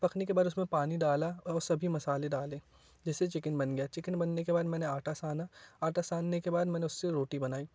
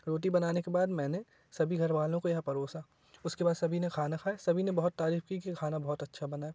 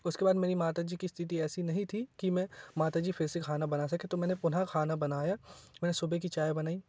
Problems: none marked